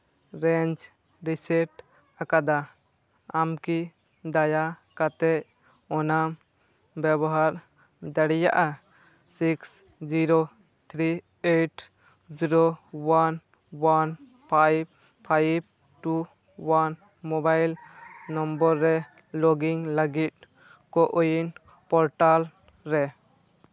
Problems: background sounds at intervals, background conversations at intervals